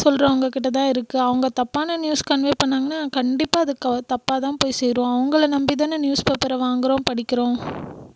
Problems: none marked